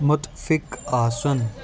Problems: constant background noise